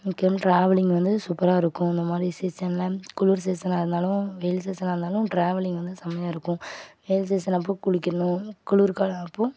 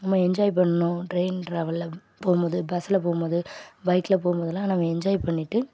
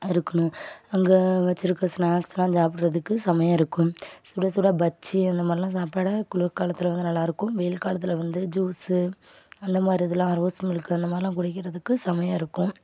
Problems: background sounds at intervals